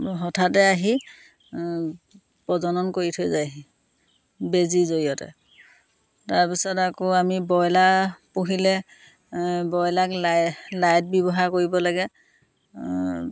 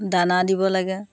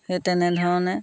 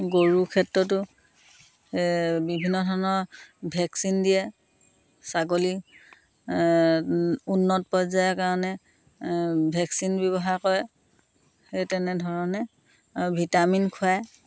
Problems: constant background noise